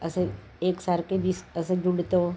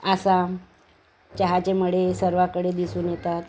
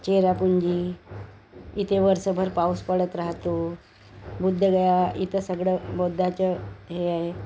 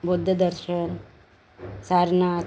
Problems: none marked